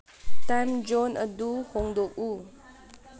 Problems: low volume